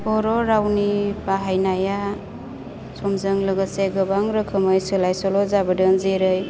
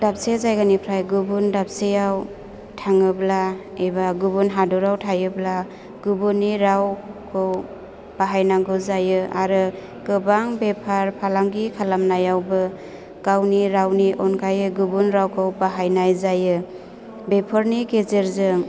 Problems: constant background noise